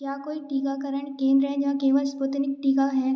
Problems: background sounds at intervals